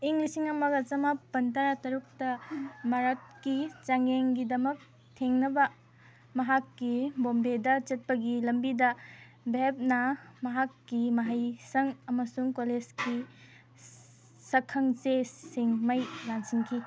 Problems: none marked